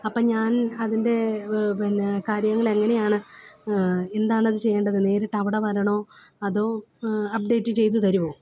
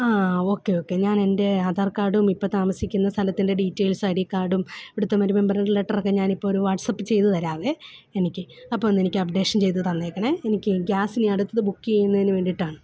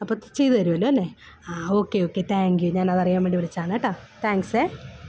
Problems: background sounds at intervals